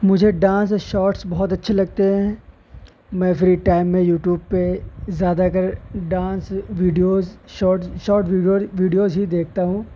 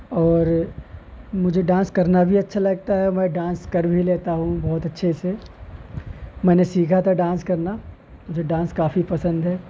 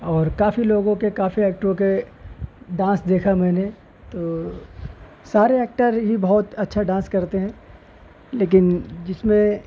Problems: constant background noise